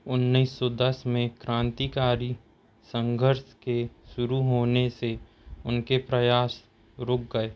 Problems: none marked